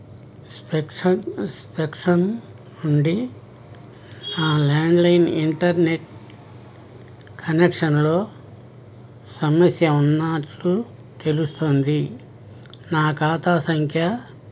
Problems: background sounds at intervals